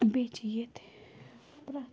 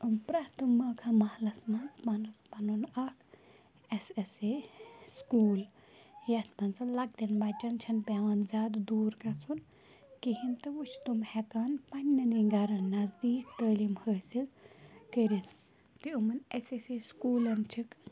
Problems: background conversations at intervals, low volume